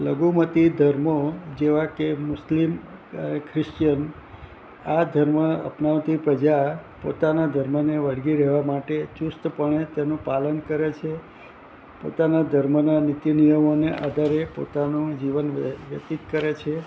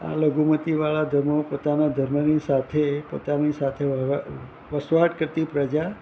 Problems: constant background noise